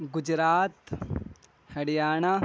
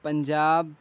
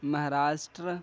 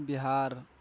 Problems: none marked